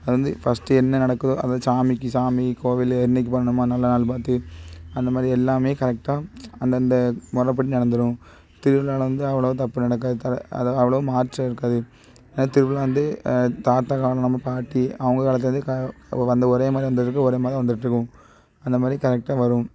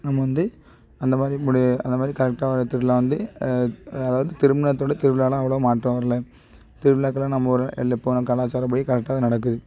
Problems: background sounds at intervals